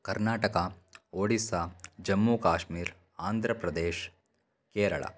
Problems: none marked